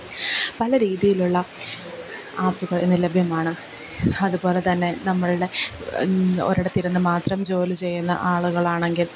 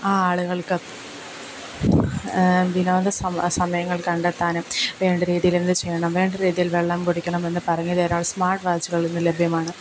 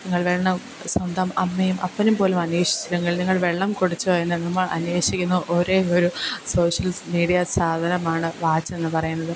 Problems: background sounds at intervals